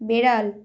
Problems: none marked